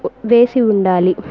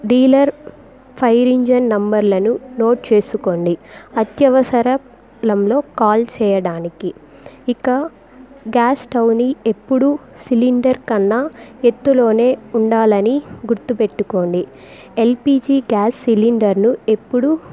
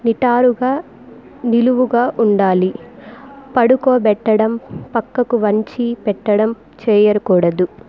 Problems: background conversations at intervals